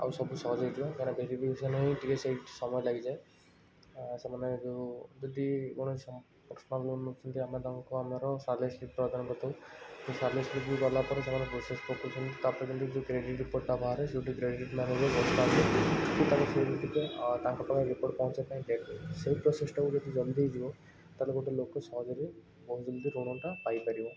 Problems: constant background noise